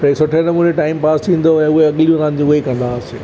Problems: constant background noise